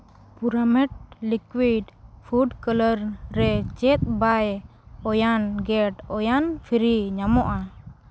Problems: constant background noise